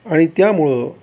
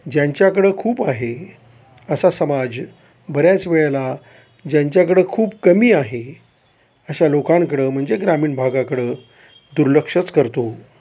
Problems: none marked